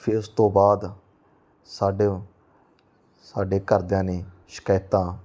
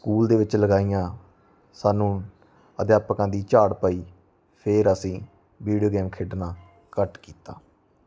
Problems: none marked